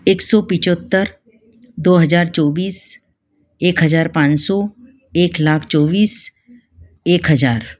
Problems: none marked